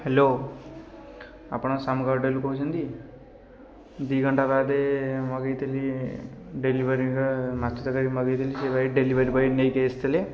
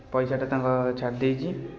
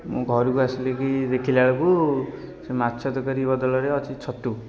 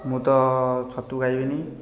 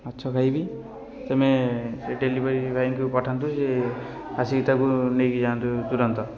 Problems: constant background noise, continuous background conversations